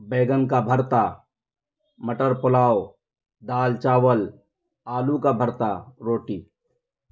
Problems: none marked